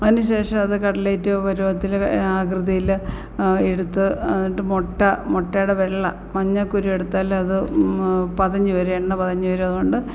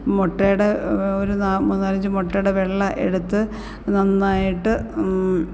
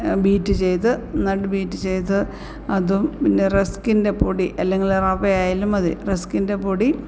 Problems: none marked